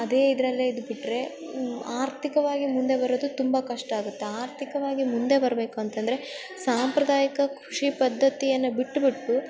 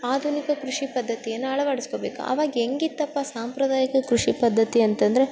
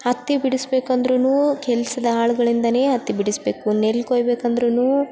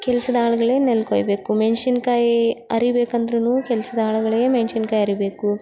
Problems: background sounds at intervals